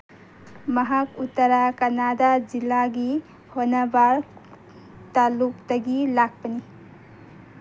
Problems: background sounds at intervals